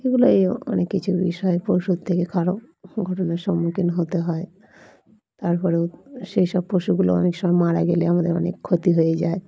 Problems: background sounds at intervals, background conversations at intervals